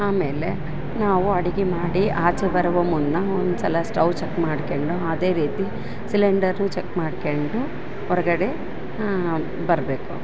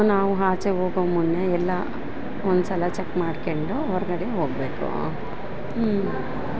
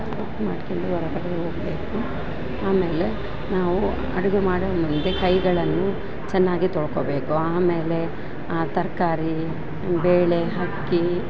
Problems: background sounds at intervals